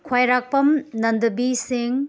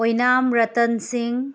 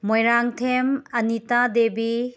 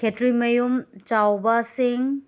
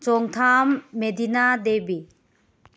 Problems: background sounds at intervals